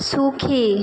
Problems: constant background noise